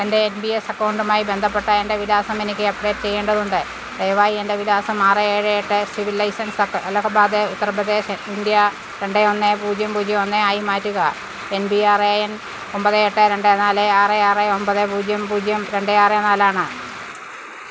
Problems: constant background noise